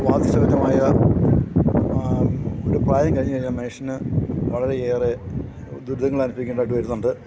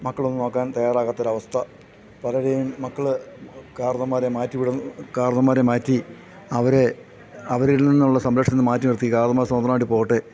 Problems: background sounds at intervals